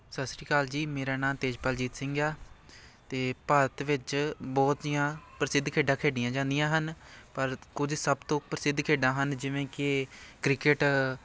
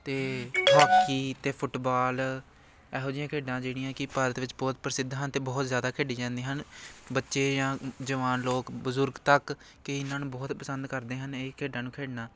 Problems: constant background noise